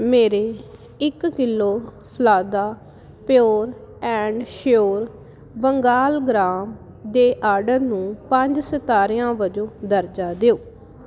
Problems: none marked